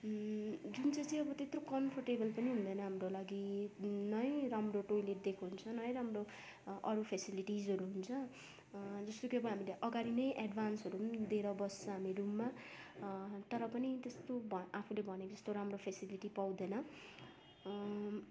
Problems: constant background noise, background conversations at intervals